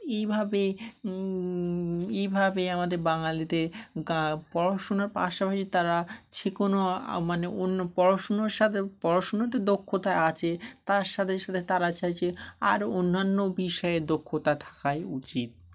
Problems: none marked